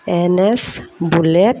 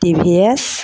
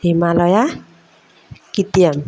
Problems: none marked